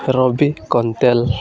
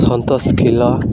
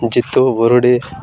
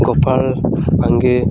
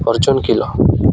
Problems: constant background noise, continuous background conversations